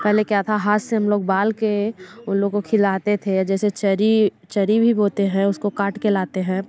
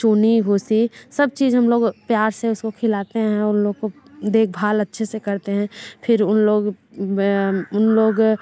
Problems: none marked